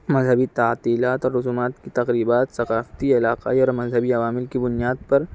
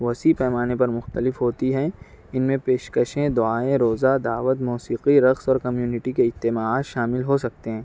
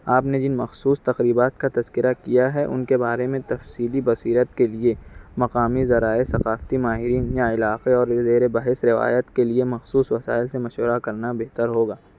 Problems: none marked